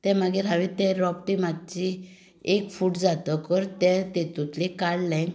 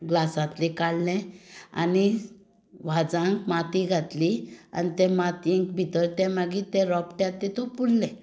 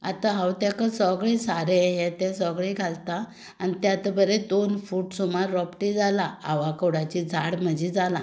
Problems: background sounds at intervals